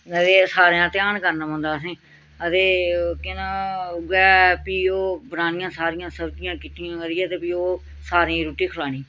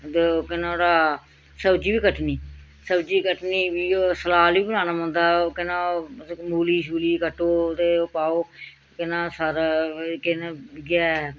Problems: none marked